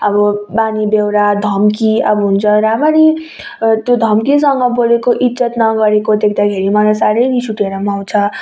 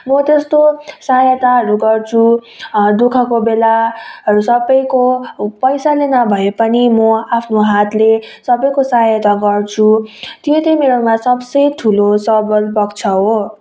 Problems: background conversations at intervals